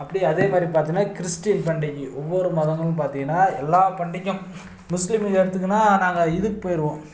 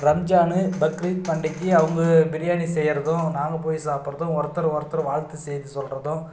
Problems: none marked